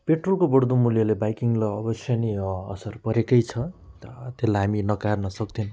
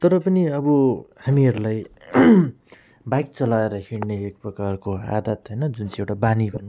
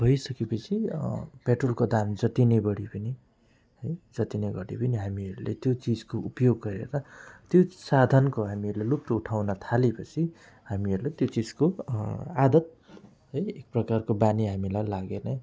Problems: none marked